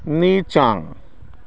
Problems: none marked